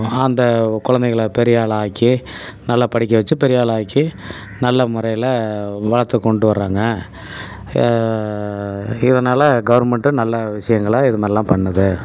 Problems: none marked